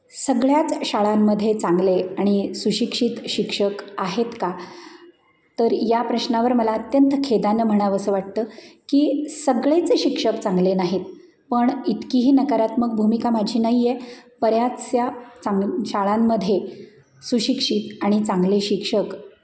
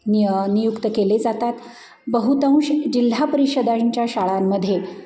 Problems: none marked